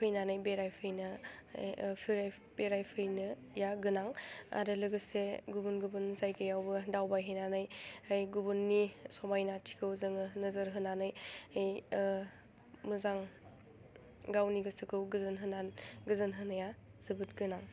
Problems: low volume